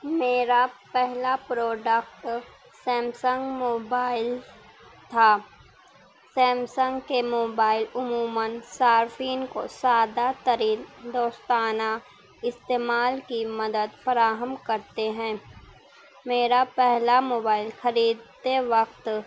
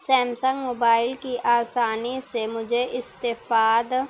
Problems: background sounds at intervals